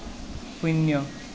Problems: constant background noise